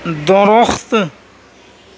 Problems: constant background noise